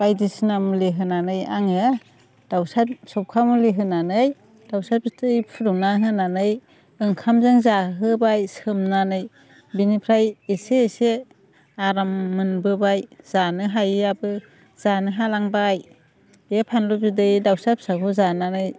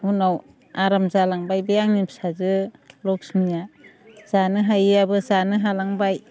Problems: none marked